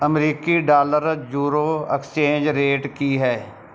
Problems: none marked